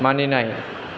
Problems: constant background noise